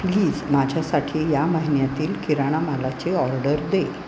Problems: constant background noise